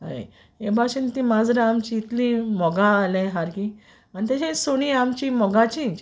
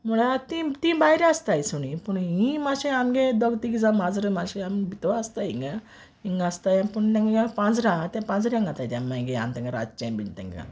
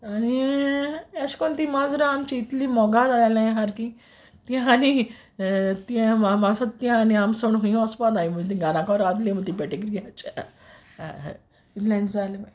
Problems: none marked